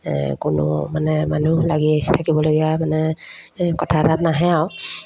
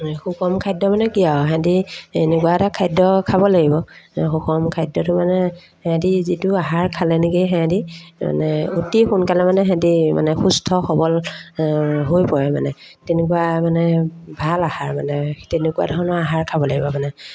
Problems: constant background noise, background conversations at intervals